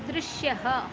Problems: constant background noise